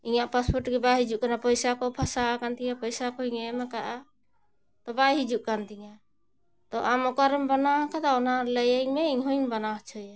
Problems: none marked